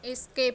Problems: none marked